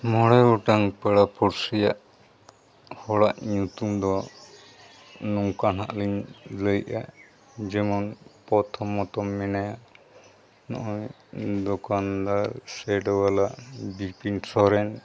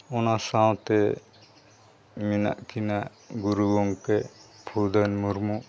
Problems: constant background noise